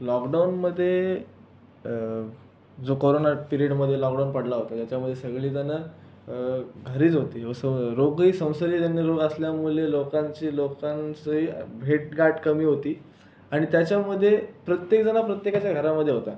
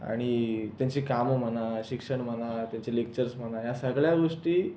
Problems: constant background noise